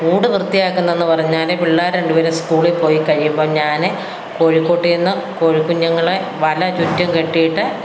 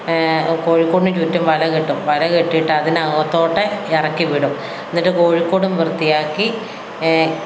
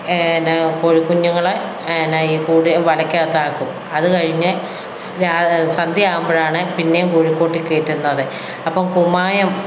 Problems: background sounds at intervals